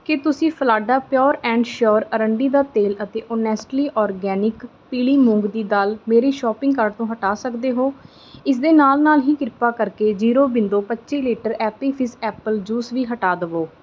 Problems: none marked